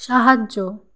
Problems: constant background noise